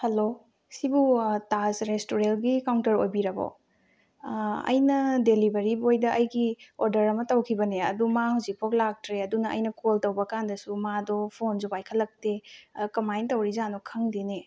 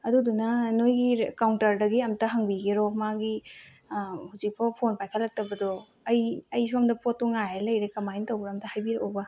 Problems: low volume